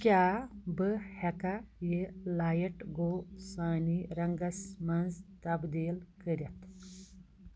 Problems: none marked